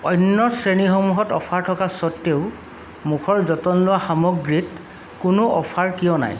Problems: constant background noise